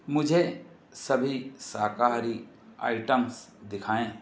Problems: constant background noise